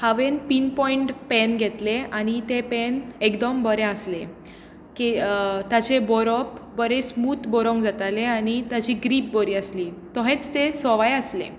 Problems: none marked